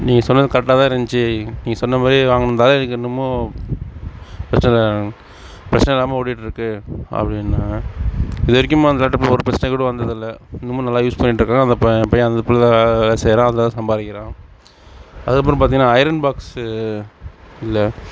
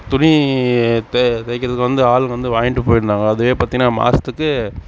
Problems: background sounds at intervals